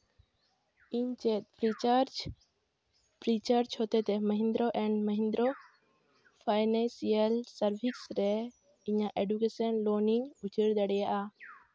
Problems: none marked